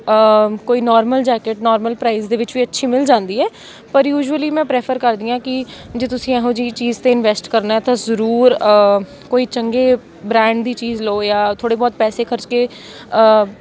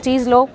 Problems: background sounds at intervals, continuous background conversations